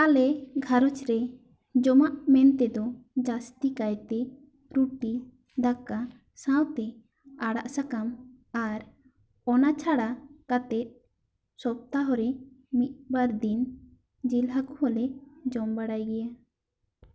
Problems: echo